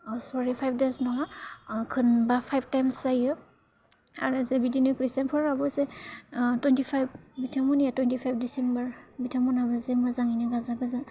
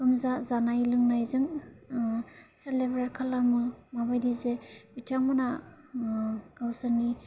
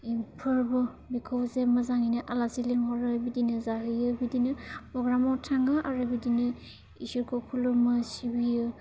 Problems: low volume